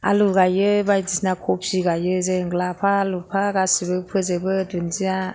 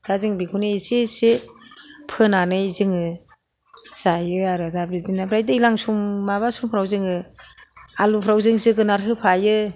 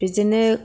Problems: none marked